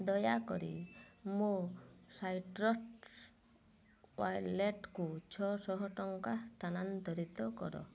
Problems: low volume